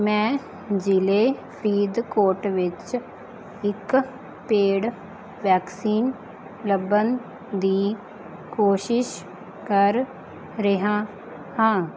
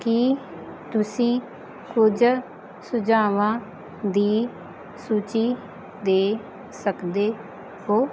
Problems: background sounds at intervals